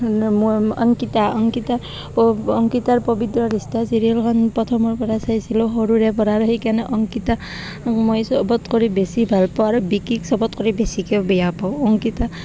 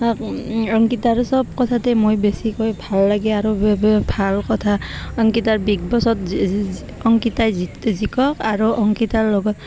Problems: constant background noise